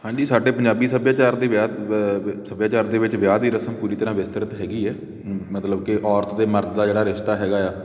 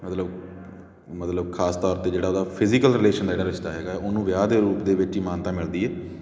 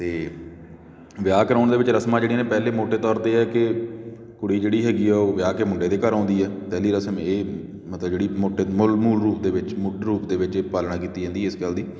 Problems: background sounds at intervals